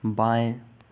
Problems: background sounds at intervals